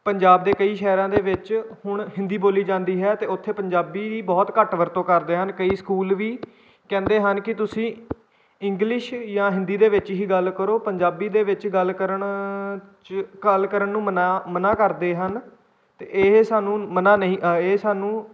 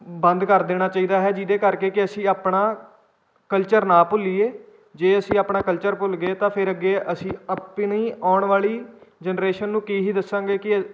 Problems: background sounds at intervals